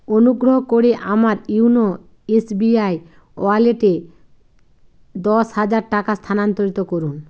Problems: constant background noise